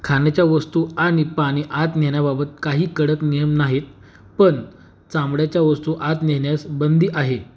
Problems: none marked